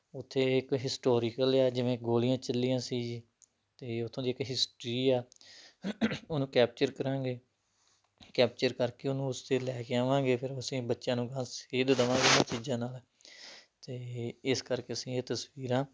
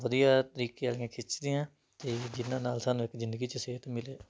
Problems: background sounds at intervals